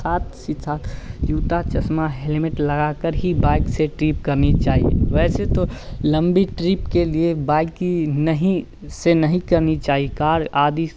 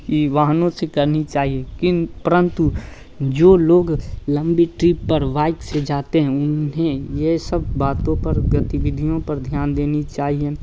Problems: constant background noise